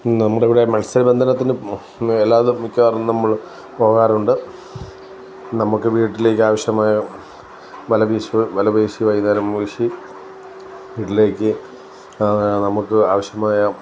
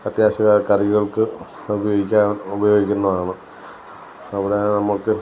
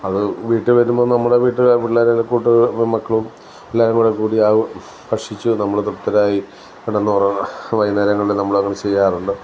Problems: none marked